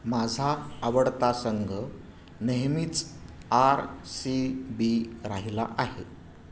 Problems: background sounds at intervals